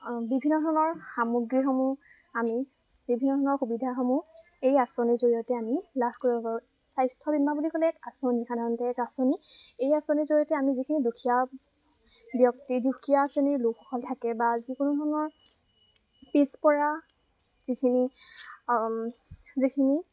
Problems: constant background noise